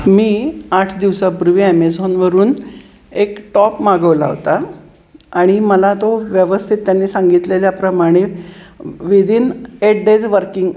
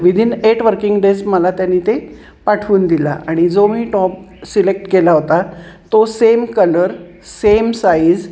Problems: none marked